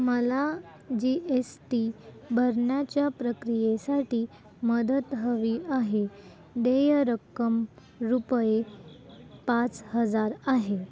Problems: constant background noise